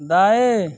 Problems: background sounds at intervals